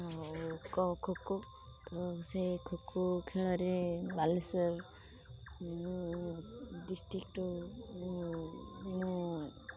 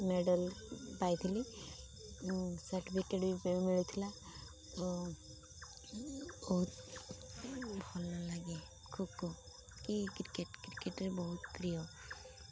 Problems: constant background noise, low volume